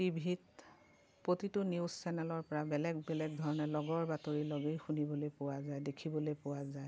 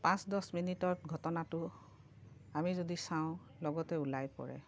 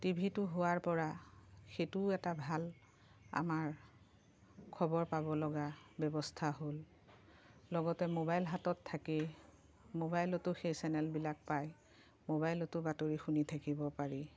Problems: none marked